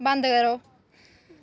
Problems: none marked